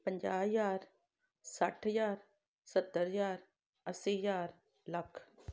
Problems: background sounds at intervals